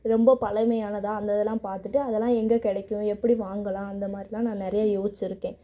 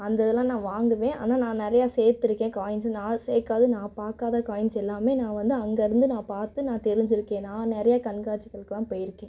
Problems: none marked